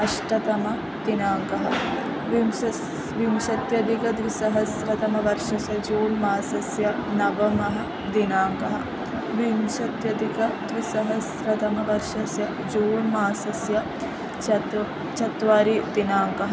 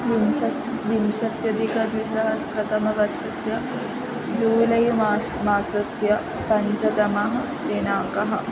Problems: constant background noise